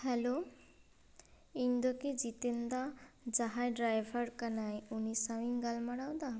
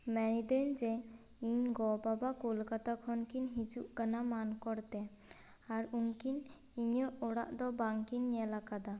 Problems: none marked